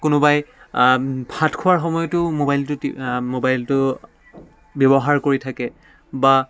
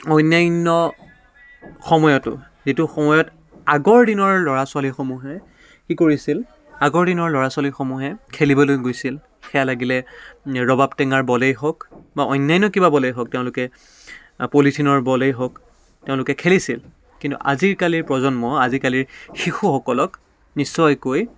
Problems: none marked